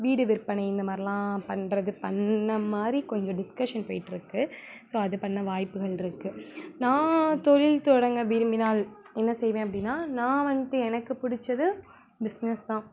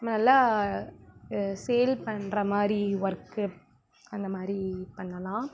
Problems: constant background noise